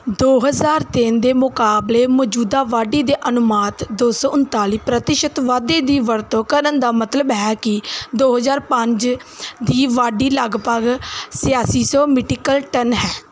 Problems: none marked